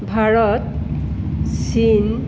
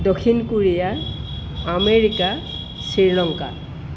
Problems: constant background noise